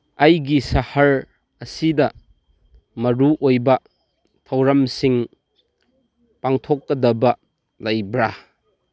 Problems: none marked